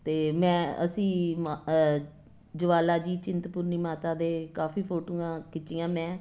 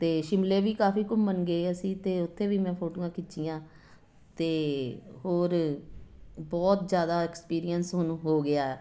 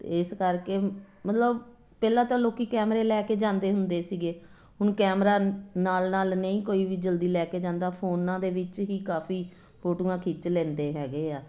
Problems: constant background noise